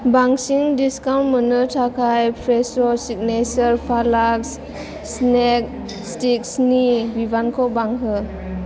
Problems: constant background noise